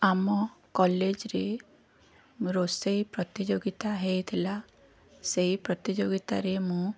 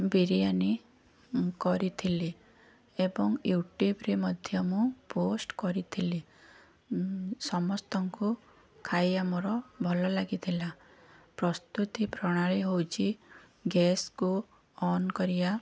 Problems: none marked